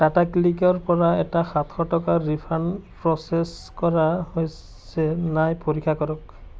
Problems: constant background noise